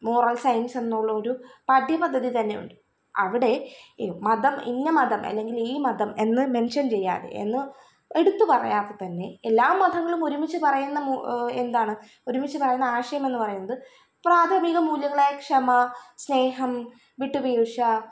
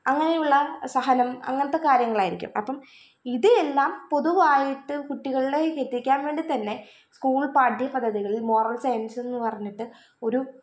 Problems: none marked